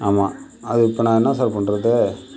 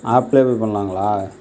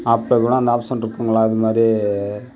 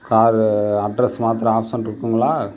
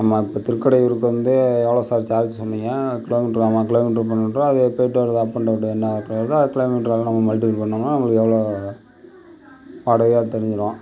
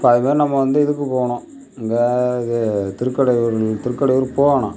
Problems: background sounds at intervals